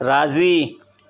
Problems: constant background noise, echo